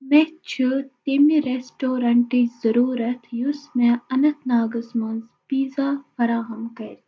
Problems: echo